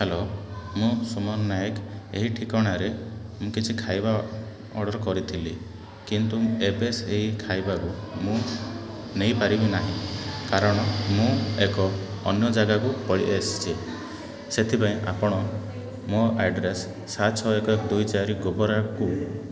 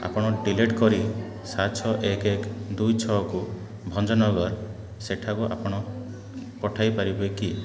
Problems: constant background noise